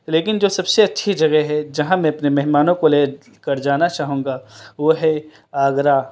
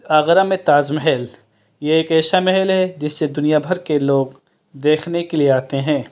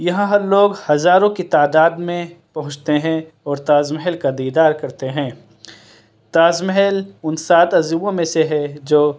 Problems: background sounds at intervals